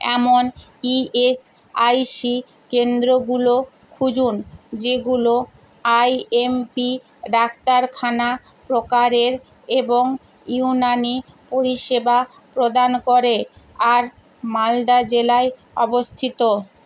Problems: constant background noise